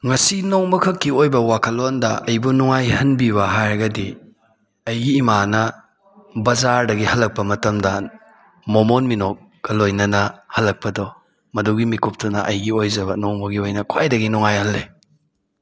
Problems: background sounds at intervals